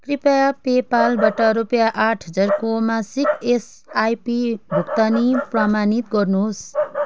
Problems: constant background noise